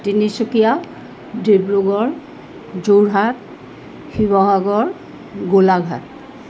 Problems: background sounds at intervals